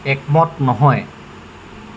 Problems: constant background noise